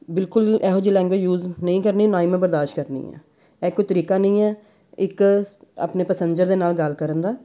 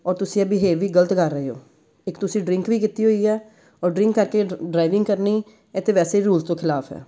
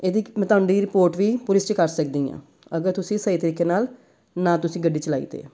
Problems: background sounds at intervals